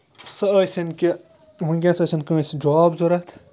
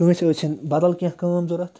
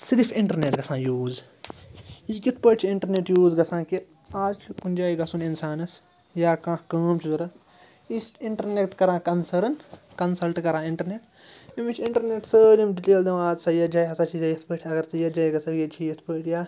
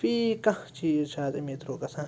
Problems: none marked